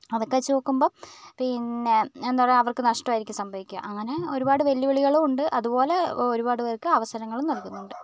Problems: none marked